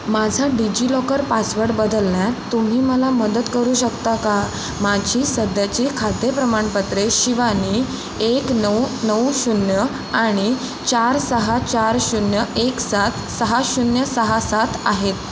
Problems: constant background noise